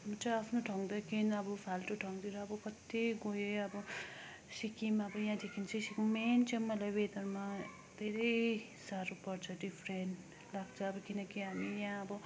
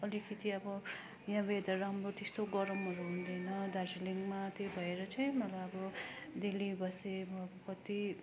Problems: constant background noise, continuous background conversations